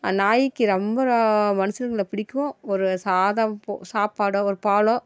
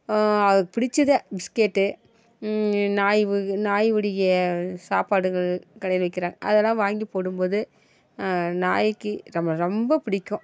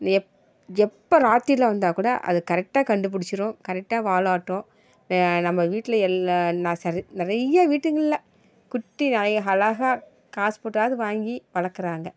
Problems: background sounds at intervals